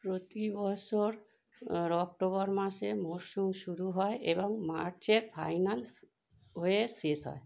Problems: none marked